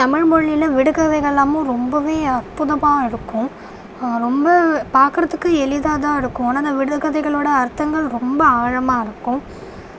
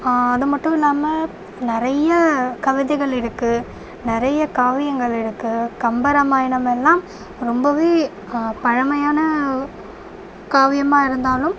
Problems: none marked